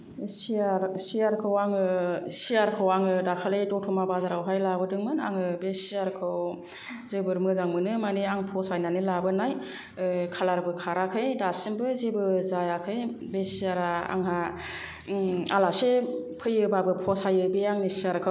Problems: low volume